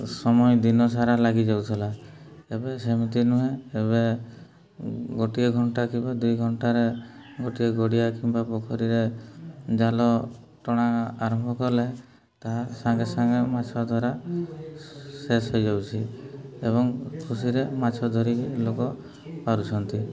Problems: background conversations at intervals, low volume